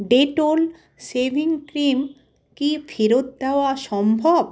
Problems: background sounds at intervals